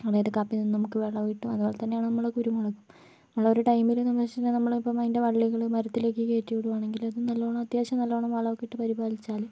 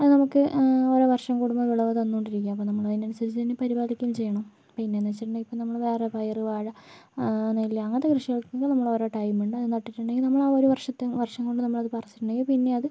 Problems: background sounds at intervals, low volume